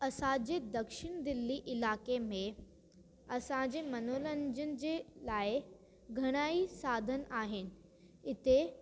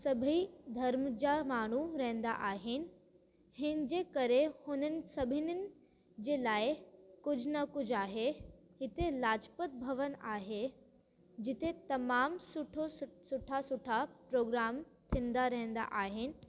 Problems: constant background noise